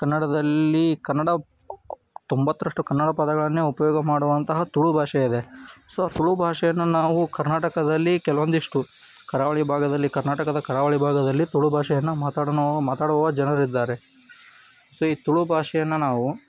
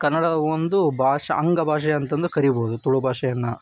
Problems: none marked